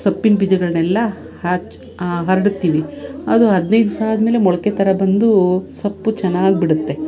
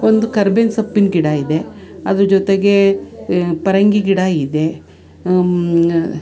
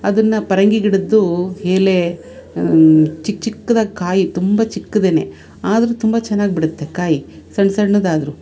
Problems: none marked